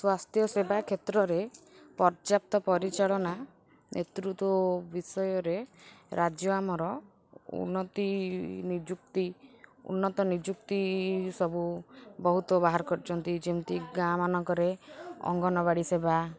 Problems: constant background noise